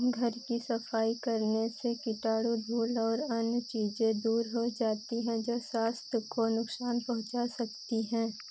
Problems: constant background noise